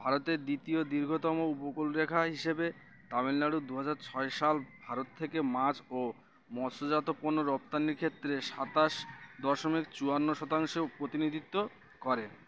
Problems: constant background noise